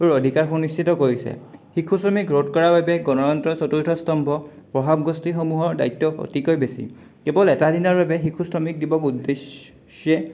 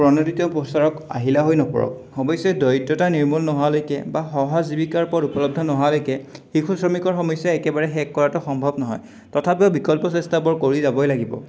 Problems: none marked